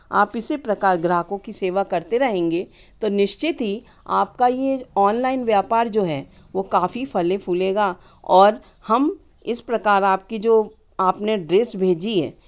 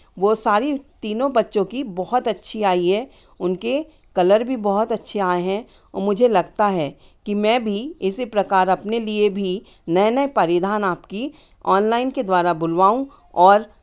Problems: none marked